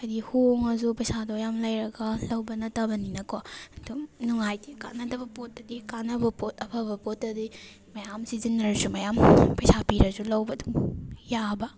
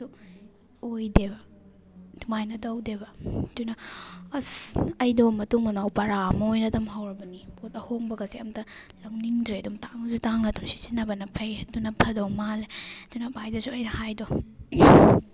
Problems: background sounds at intervals